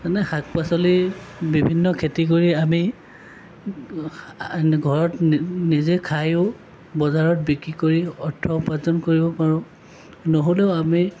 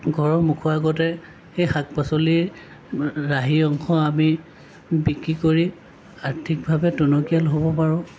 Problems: none marked